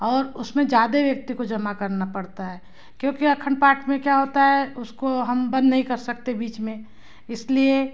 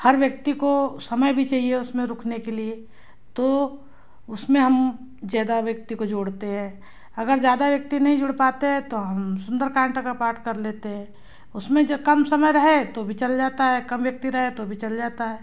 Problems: background sounds at intervals